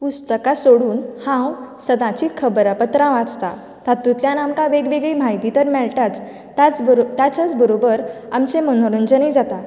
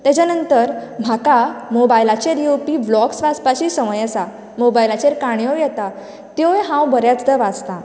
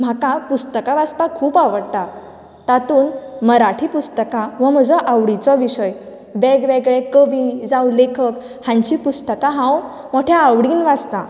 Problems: none marked